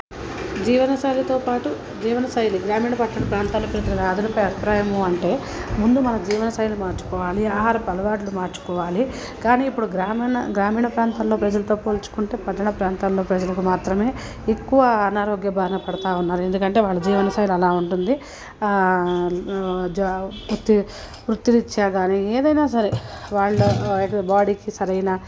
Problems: constant background noise, low volume